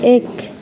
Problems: low volume